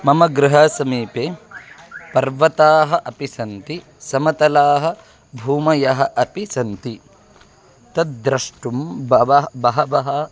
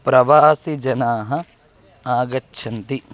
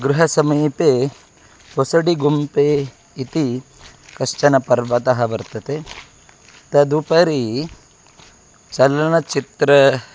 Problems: constant background noise, background conversations at intervals